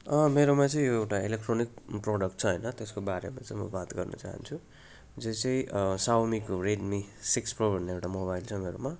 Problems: none marked